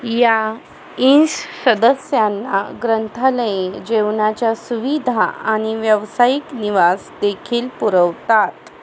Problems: constant background noise